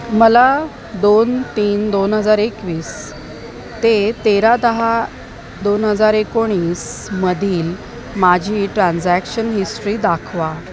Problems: constant background noise